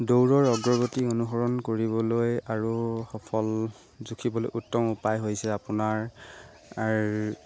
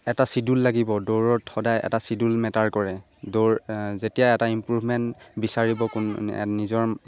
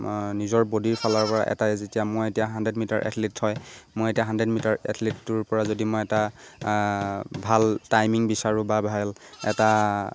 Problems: constant background noise